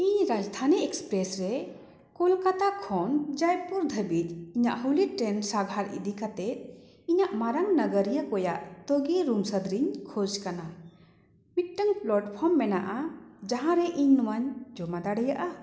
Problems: echo